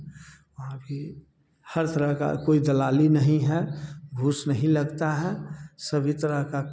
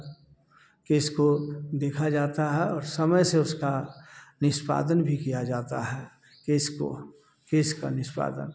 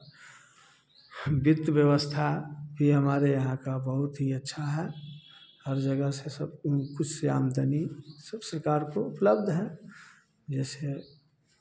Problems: none marked